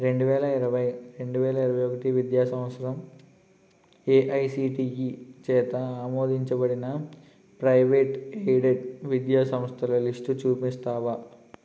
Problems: constant background noise